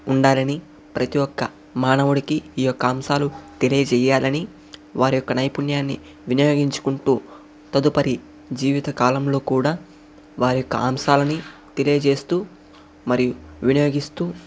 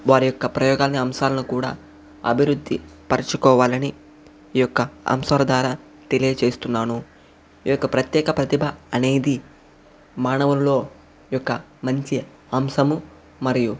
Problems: none marked